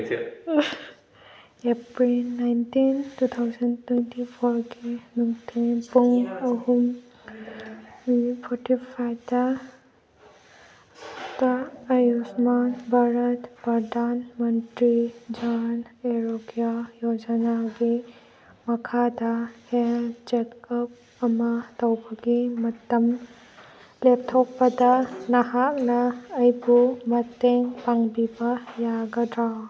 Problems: background sounds at intervals